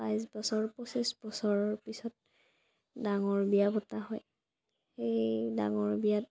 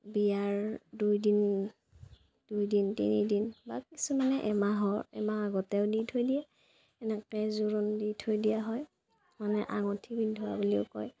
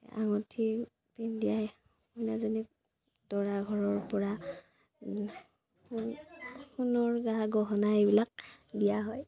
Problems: constant background noise, low volume